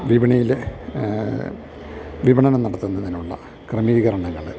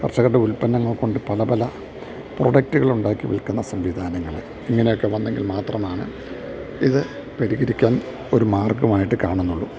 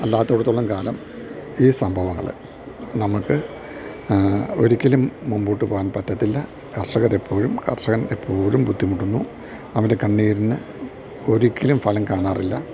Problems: none marked